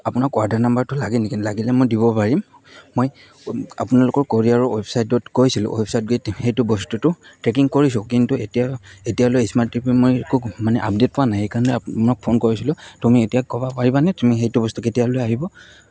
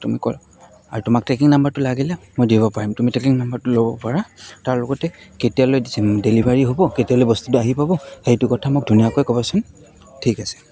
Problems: constant background noise, background conversations at intervals